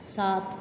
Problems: constant background noise